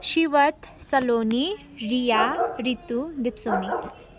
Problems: constant background noise